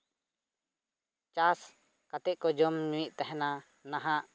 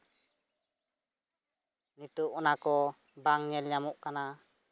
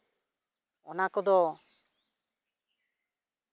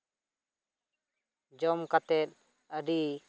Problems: none marked